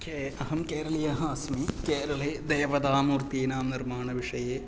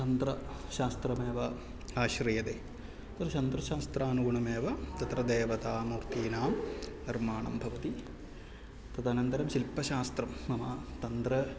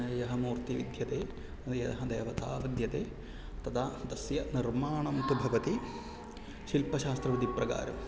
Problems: low volume